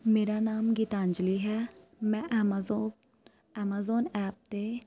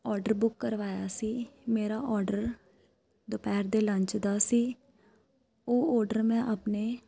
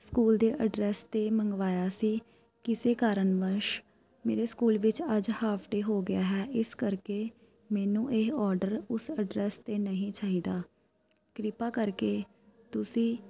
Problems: constant background noise